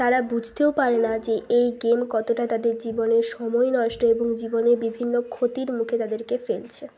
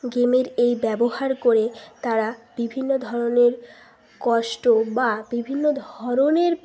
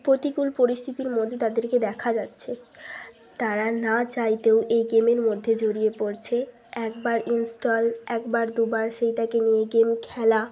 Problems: none marked